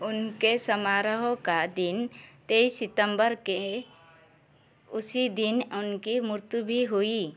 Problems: background sounds at intervals